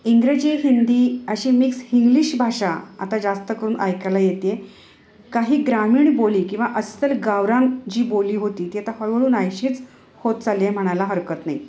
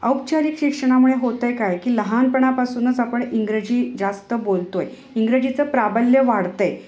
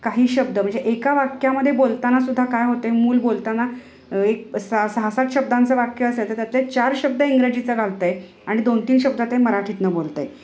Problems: background sounds at intervals